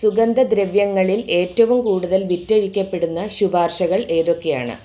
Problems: background sounds at intervals